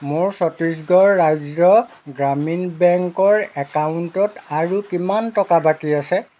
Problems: constant background noise